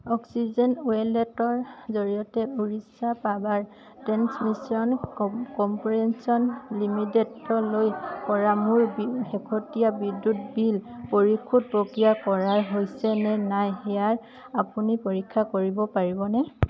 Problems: background sounds at intervals, continuous background conversations